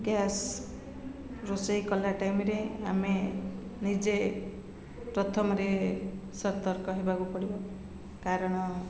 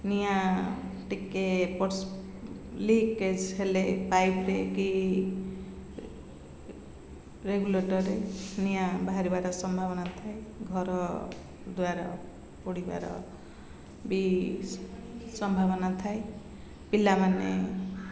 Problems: constant background noise